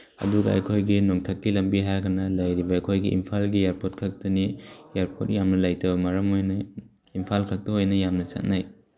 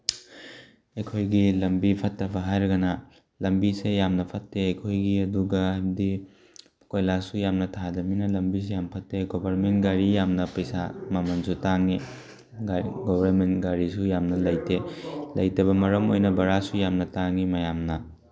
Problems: background sounds at intervals